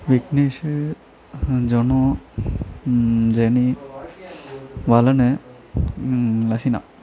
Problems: continuous background conversations